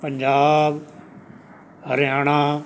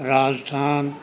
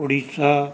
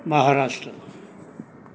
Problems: background sounds at intervals